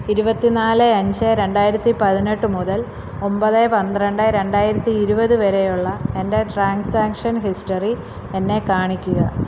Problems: constant background noise